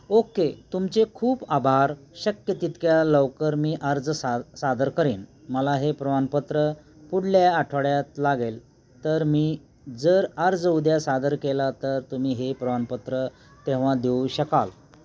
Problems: none marked